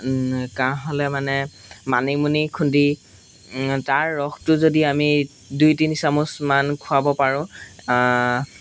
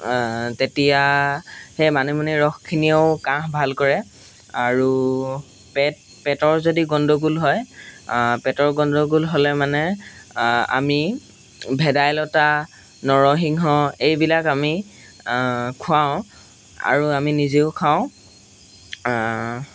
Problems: background sounds at intervals